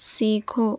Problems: none marked